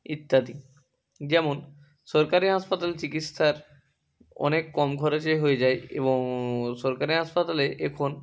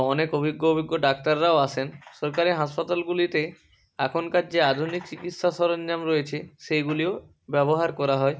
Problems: none marked